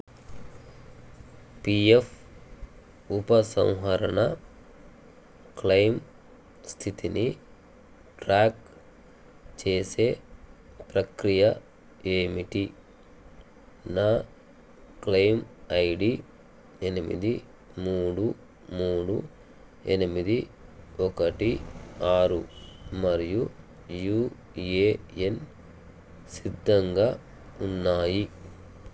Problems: none marked